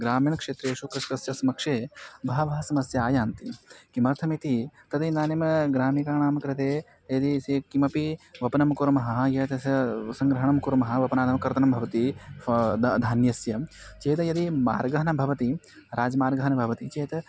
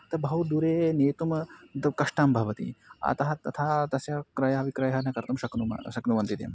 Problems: constant background noise